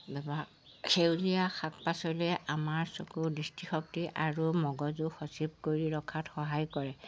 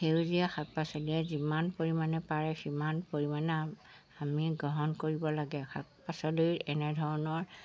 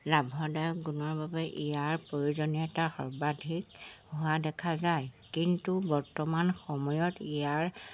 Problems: constant background noise